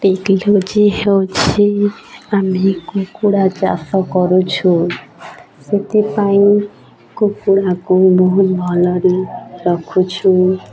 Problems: constant background noise, continuous background conversations